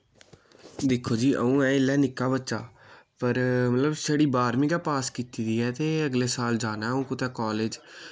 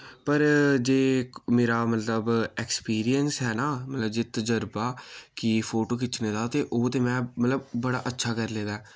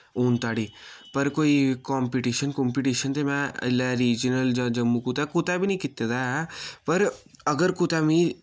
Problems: none marked